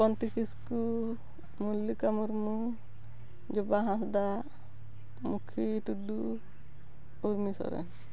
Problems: none marked